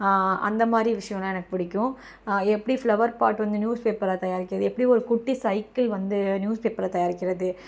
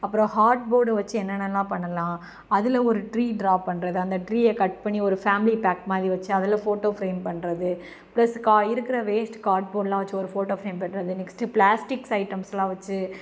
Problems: background sounds at intervals